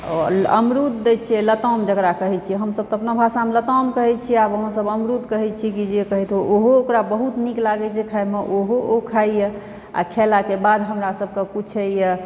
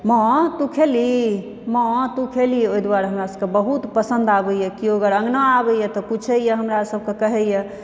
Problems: background sounds at intervals